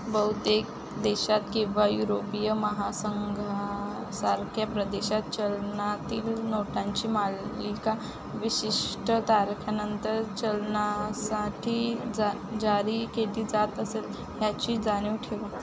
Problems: constant background noise, continuous background conversations